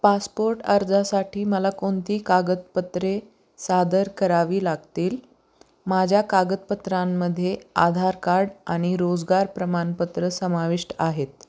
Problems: constant background noise